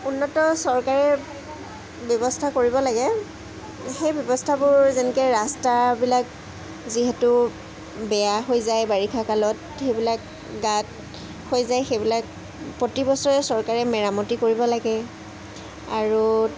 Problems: constant background noise